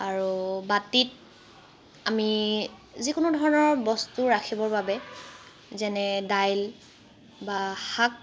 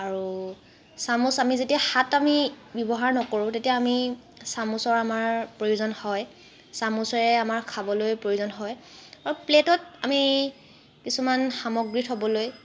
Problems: constant background noise